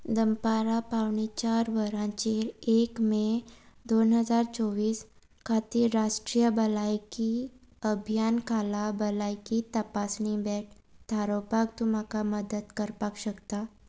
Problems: none marked